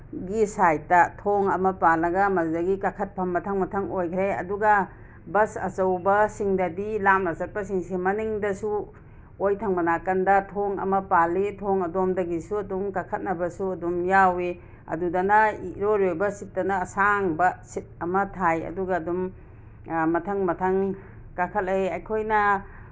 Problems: background sounds at intervals